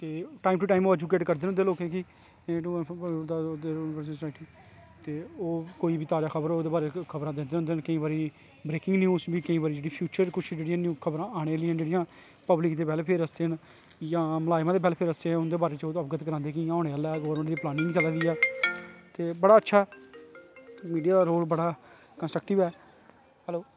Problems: constant background noise